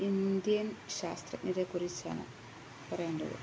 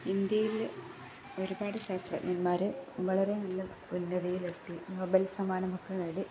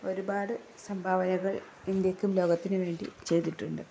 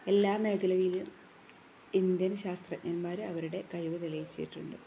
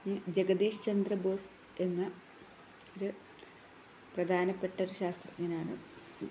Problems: none marked